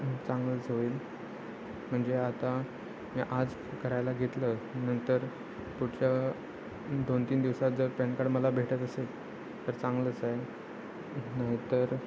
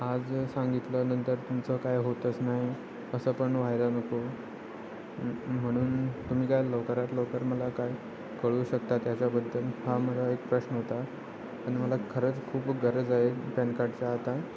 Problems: none marked